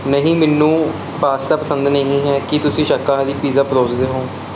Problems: none marked